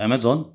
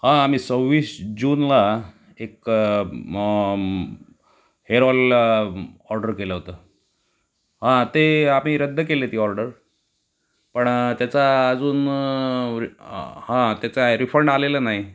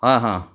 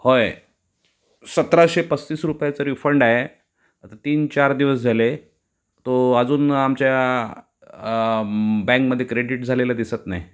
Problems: constant background noise, background conversations at intervals